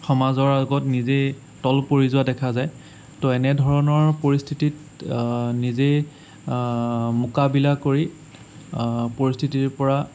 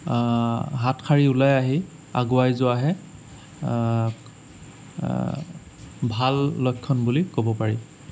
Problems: none marked